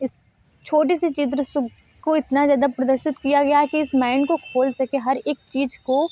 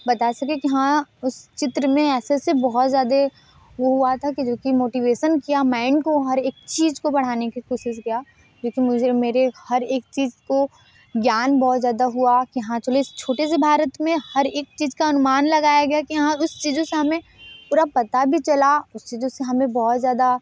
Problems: background sounds at intervals